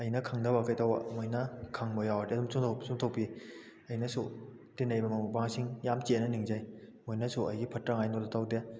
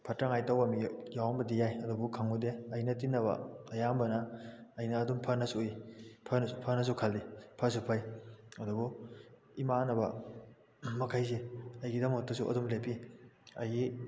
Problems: none marked